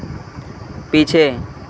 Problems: constant background noise